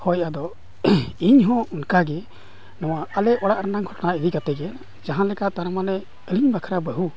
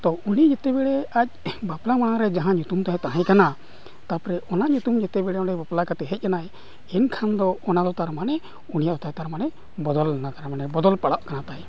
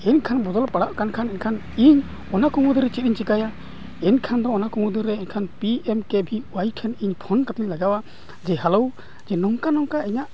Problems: background sounds at intervals, continuous background conversations